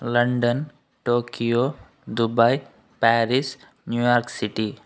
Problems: constant background noise